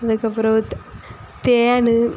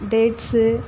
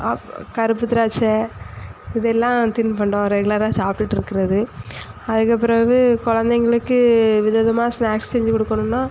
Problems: none marked